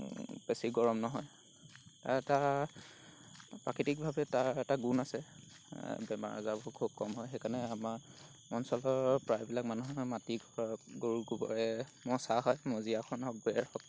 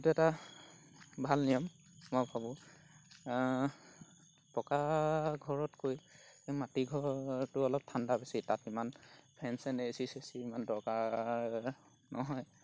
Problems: background sounds at intervals